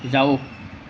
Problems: background sounds at intervals